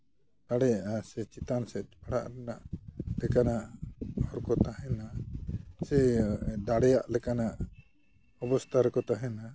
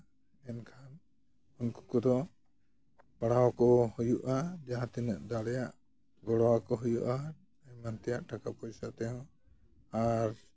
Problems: none marked